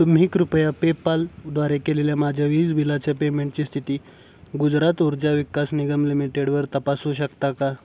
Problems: background sounds at intervals